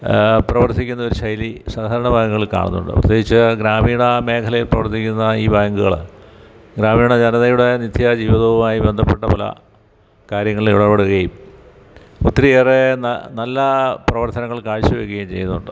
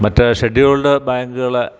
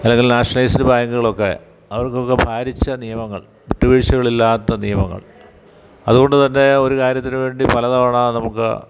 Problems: background sounds at intervals